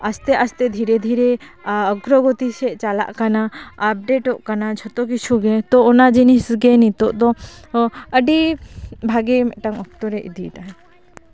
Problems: none marked